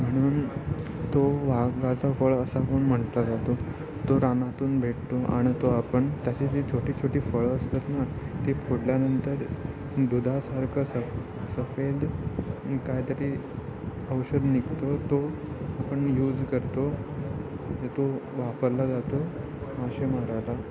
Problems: constant background noise, continuous background conversations